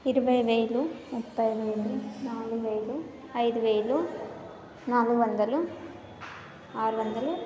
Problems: none marked